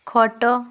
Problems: none marked